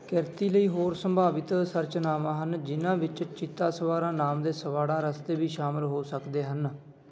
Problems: constant background noise